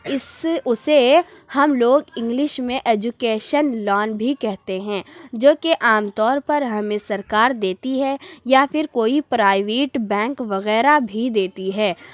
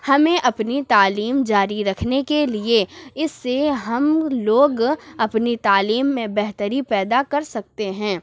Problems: none marked